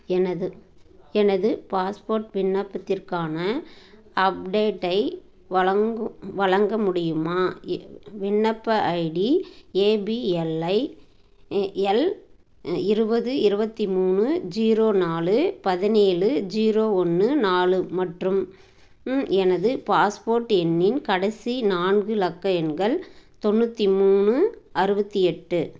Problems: none marked